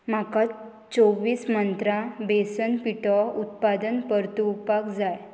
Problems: constant background noise